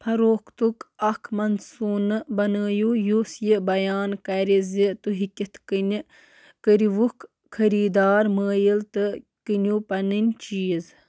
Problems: constant background noise